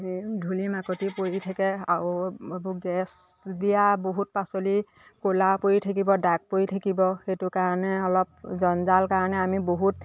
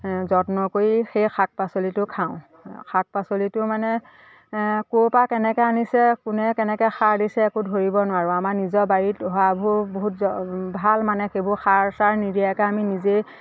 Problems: constant background noise, background conversations at intervals